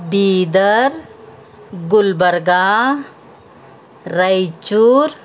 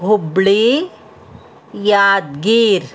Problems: none marked